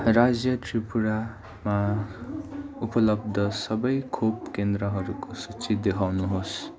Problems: constant background noise